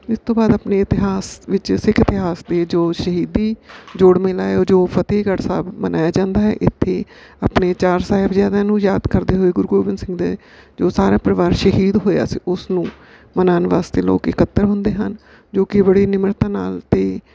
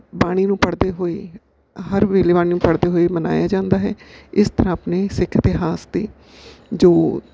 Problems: background sounds at intervals